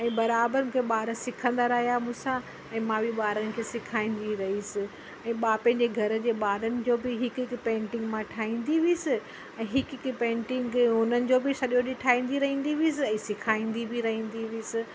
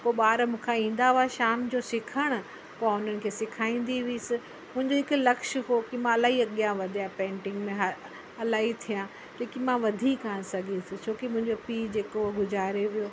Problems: constant background noise